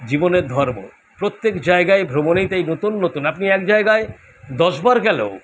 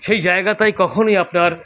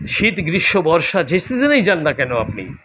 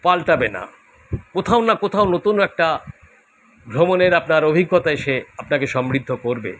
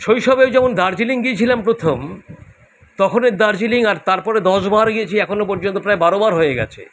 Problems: none marked